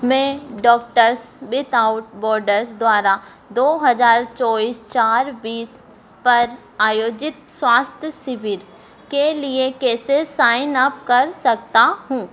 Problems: constant background noise